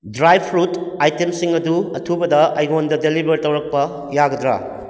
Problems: none marked